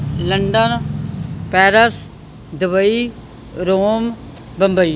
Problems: background sounds at intervals, background conversations at intervals